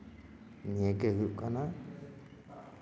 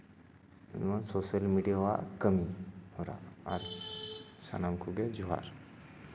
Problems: none marked